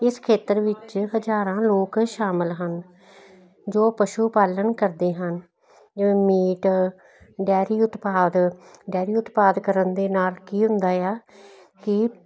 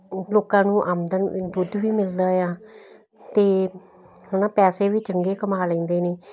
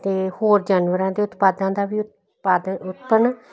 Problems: none marked